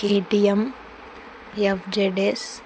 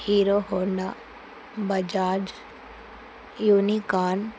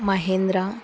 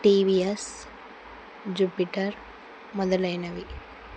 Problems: none marked